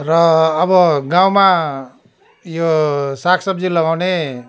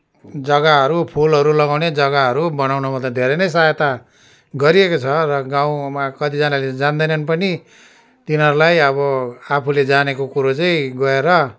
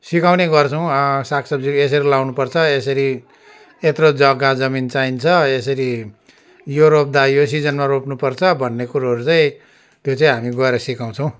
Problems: none marked